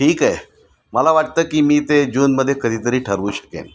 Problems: constant background noise, continuous background conversations